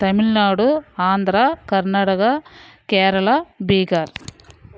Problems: background sounds at intervals